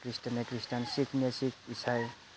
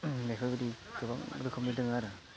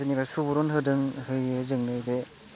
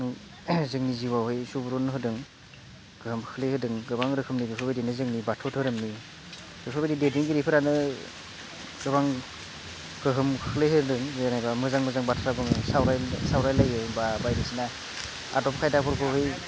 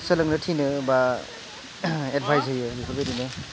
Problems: none marked